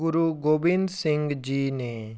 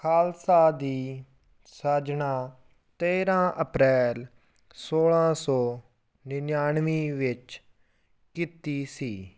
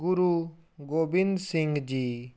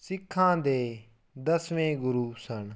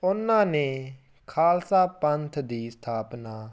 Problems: none marked